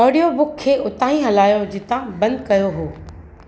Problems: constant background noise, echo